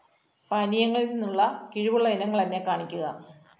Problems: none marked